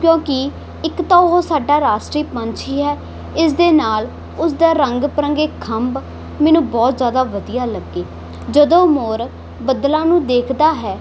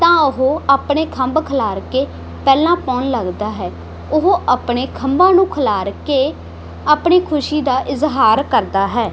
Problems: none marked